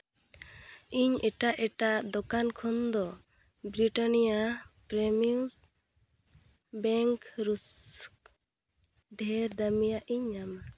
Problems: background sounds at intervals